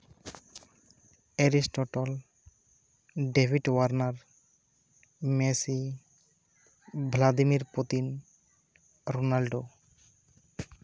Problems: none marked